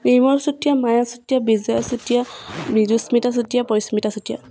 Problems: none marked